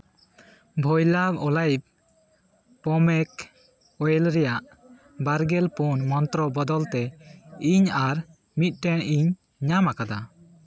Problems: background conversations at intervals